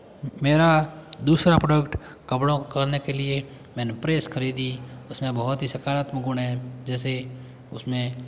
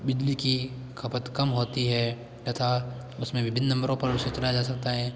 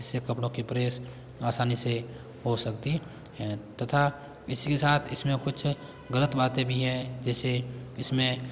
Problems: background sounds at intervals